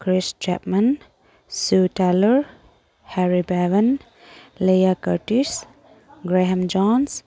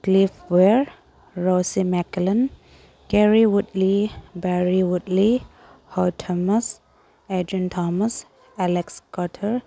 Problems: none marked